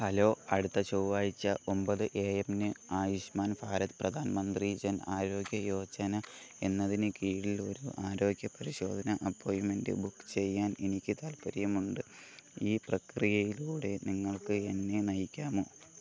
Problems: constant background noise, low volume